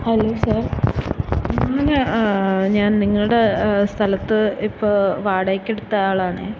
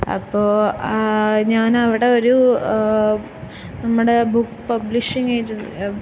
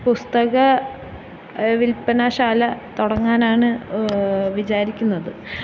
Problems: constant background noise